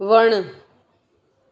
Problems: constant background noise, echo